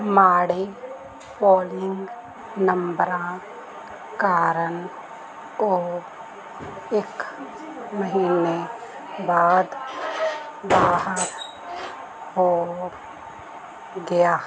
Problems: constant background noise, background conversations at intervals